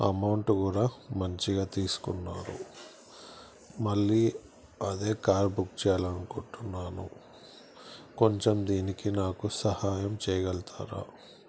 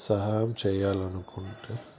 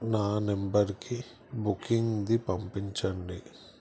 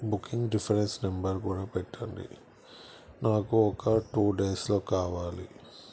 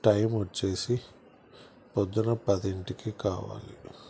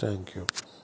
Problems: constant background noise